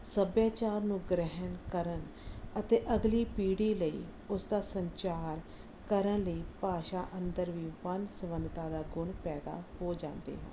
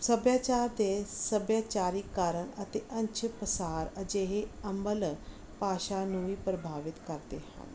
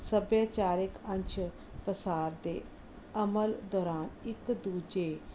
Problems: none marked